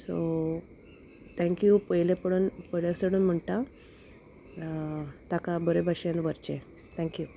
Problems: constant background noise